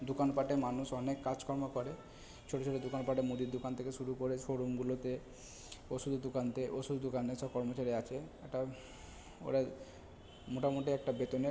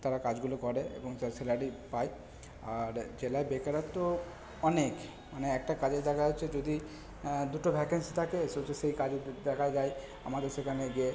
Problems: background sounds at intervals, background conversations at intervals